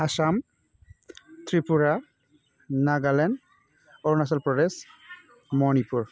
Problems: none marked